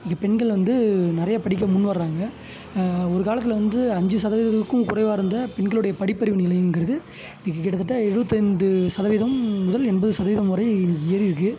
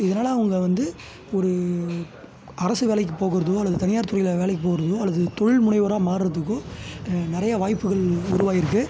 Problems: background sounds at intervals